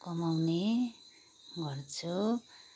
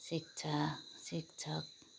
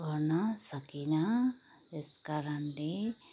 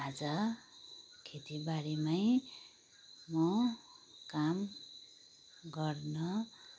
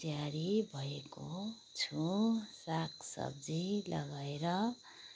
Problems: background sounds at intervals